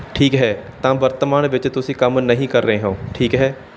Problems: background sounds at intervals